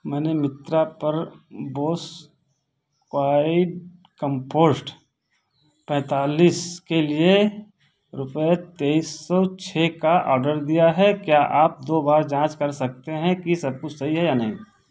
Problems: background sounds at intervals